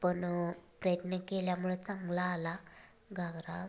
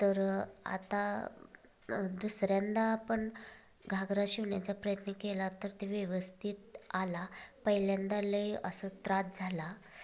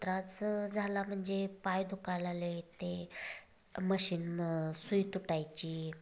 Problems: constant background noise, background conversations at intervals